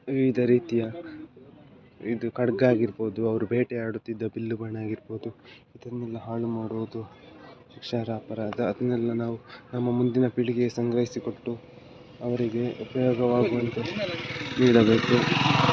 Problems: background sounds at intervals